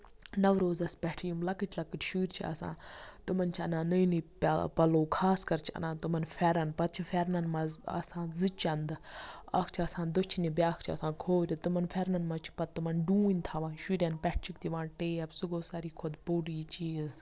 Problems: background sounds at intervals